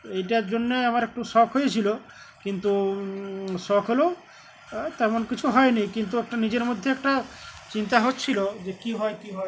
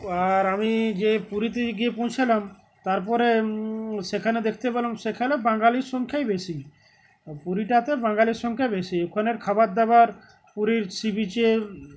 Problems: constant background noise, background conversations at intervals